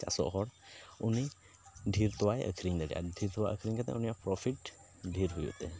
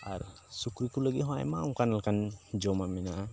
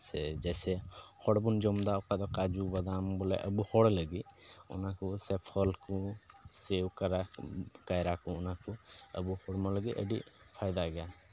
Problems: none marked